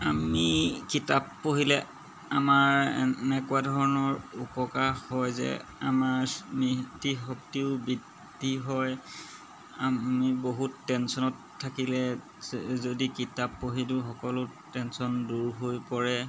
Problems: background sounds at intervals